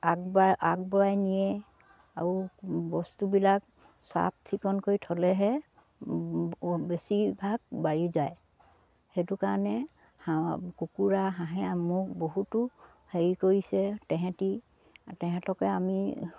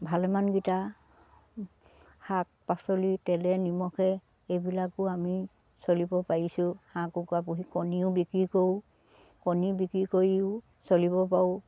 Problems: low volume